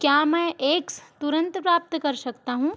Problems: none marked